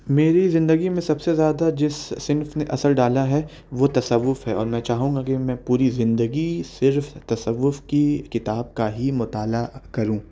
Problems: none marked